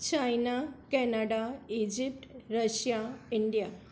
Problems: none marked